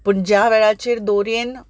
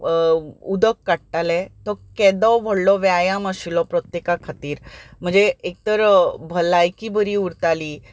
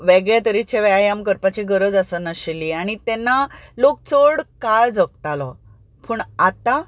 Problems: none marked